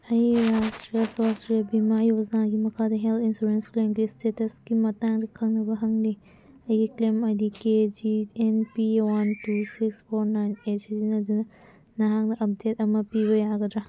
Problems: background sounds at intervals